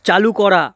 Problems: none marked